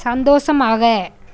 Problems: none marked